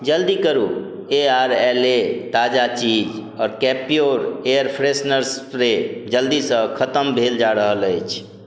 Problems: none marked